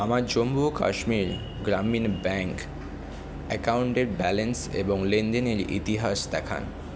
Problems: constant background noise